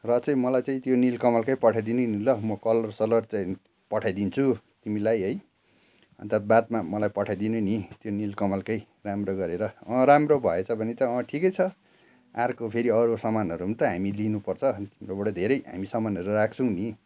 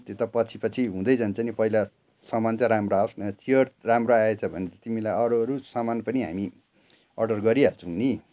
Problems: none marked